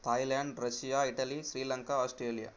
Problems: constant background noise